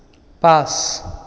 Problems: echo